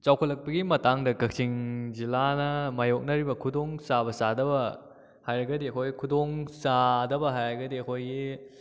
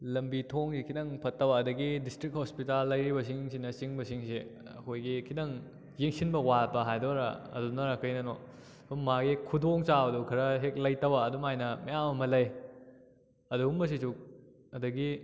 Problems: none marked